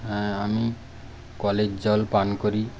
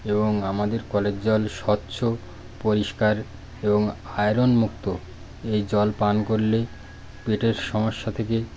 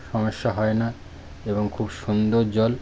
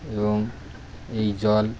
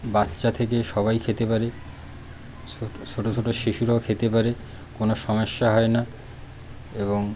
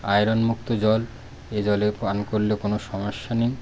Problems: constant background noise, background conversations at intervals